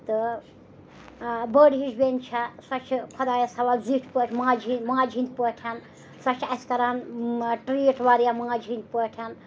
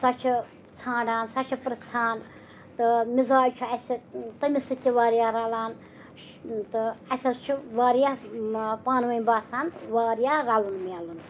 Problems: background sounds at intervals, background conversations at intervals